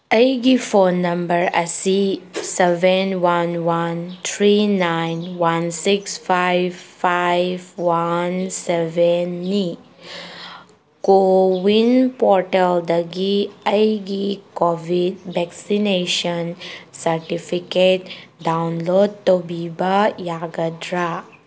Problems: background sounds at intervals